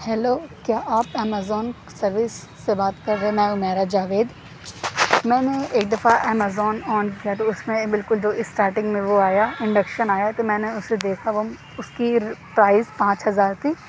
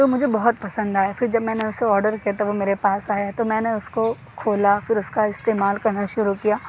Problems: none marked